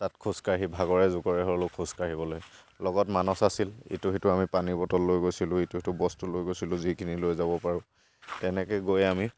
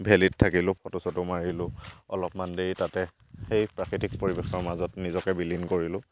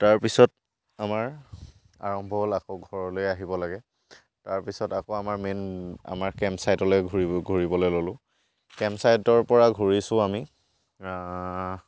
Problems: background sounds at intervals